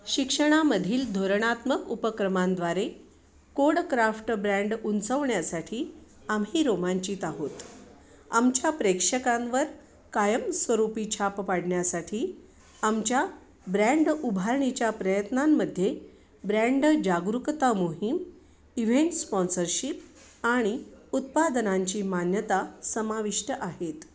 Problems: none marked